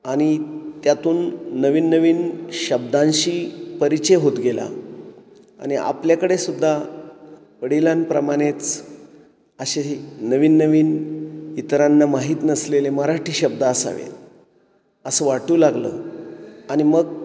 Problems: none marked